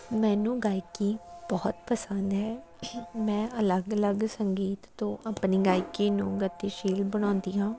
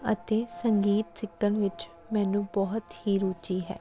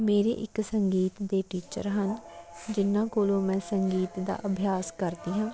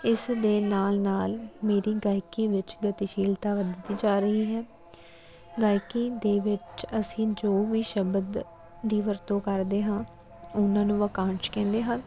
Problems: none marked